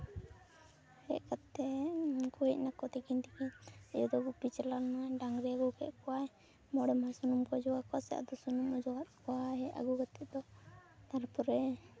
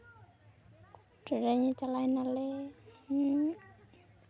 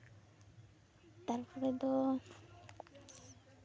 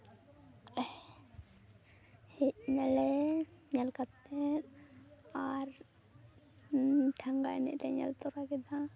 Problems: background sounds at intervals, continuous background conversations